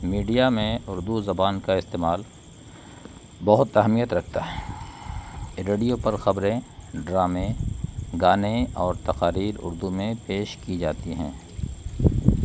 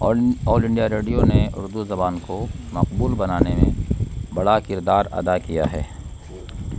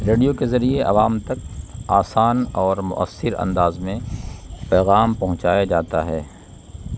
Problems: constant background noise